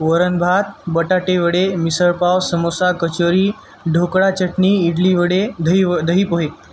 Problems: background sounds at intervals